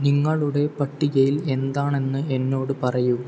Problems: none marked